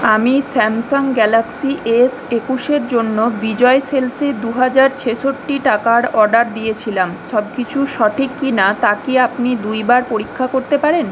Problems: constant background noise